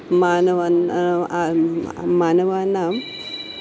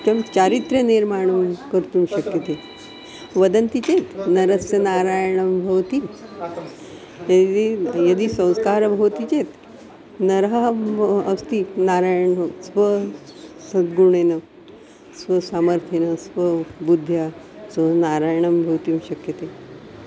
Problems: constant background noise, continuous background conversations